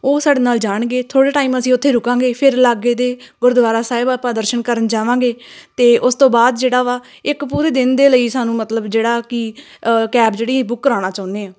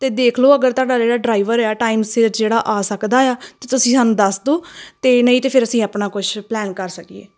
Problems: none marked